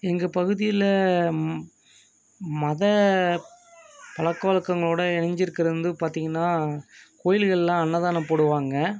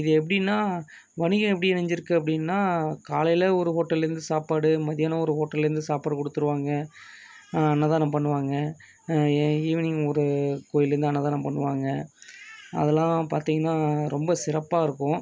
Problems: background conversations at intervals